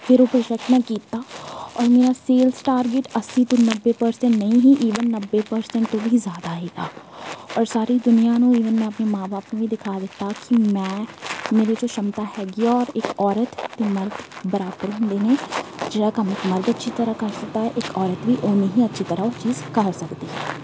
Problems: background sounds at intervals